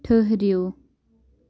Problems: none marked